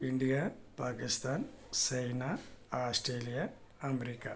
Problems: low volume